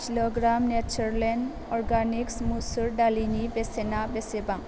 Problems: none marked